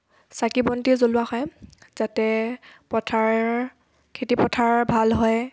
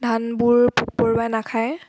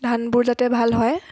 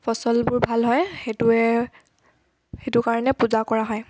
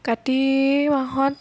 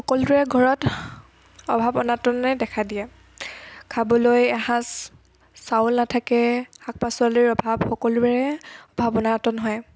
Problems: background sounds at intervals